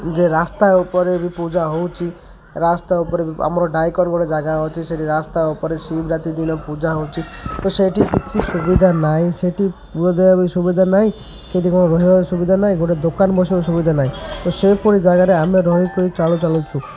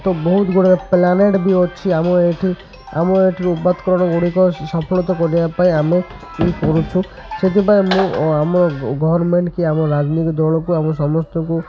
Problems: constant background noise, continuous background conversations